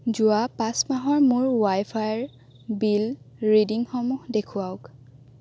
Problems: constant background noise